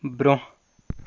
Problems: none marked